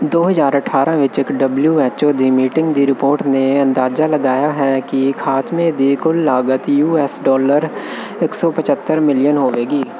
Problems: constant background noise